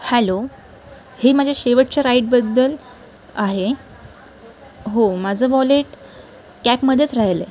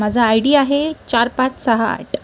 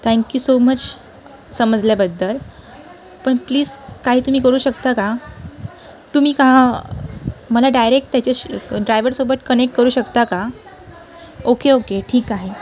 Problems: constant background noise, continuous background conversations